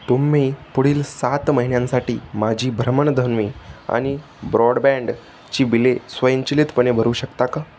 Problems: none marked